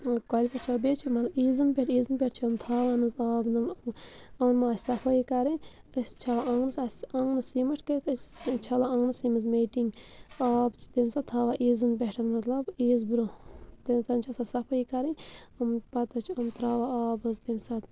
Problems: constant background noise